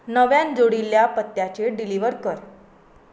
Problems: background sounds at intervals